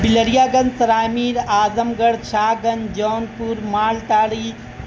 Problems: constant background noise